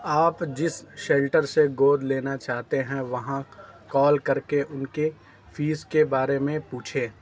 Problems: background sounds at intervals